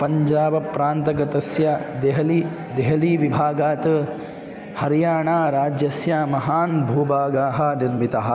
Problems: constant background noise